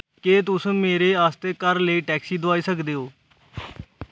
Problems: background sounds at intervals